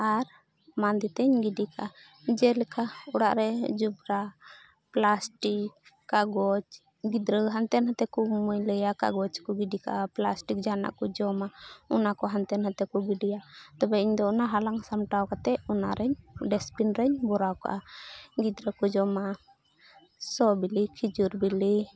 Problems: none marked